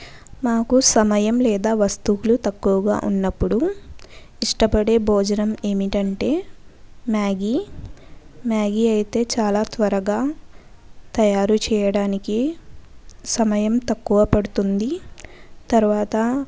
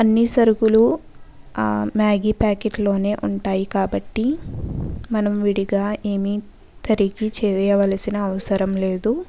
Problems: background conversations at intervals